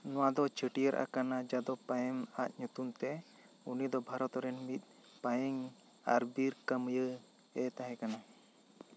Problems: none marked